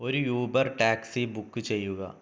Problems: none marked